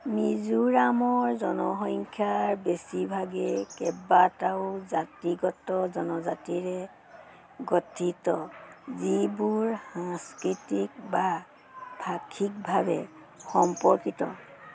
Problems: none marked